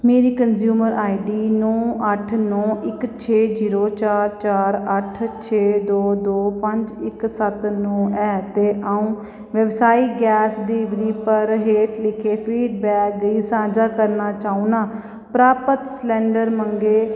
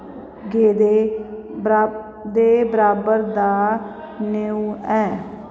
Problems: echo